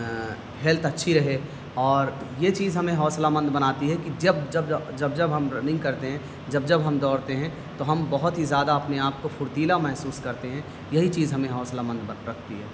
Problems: constant background noise